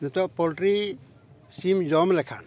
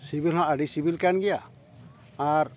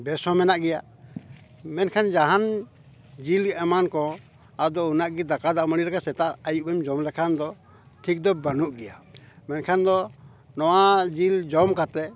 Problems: none marked